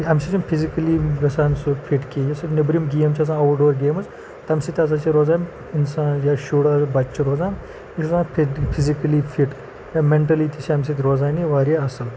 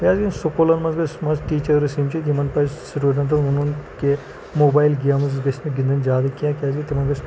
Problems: constant background noise